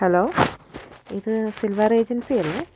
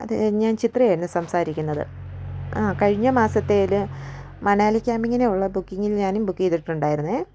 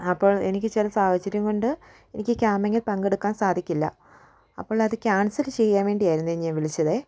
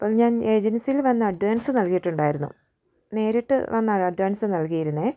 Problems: background sounds at intervals